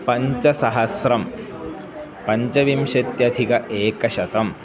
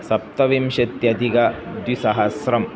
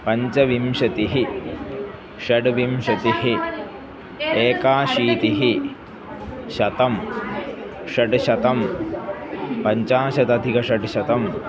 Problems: constant background noise